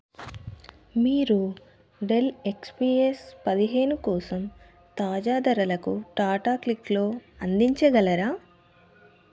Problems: none marked